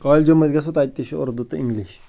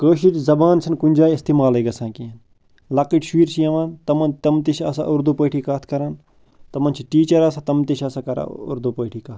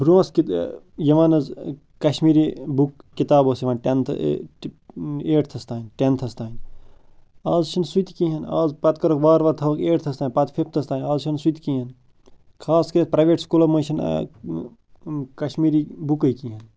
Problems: constant background noise